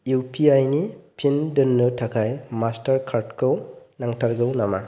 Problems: none marked